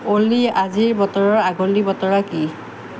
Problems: constant background noise